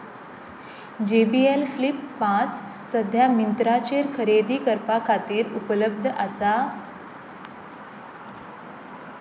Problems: none marked